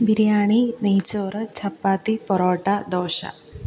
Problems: none marked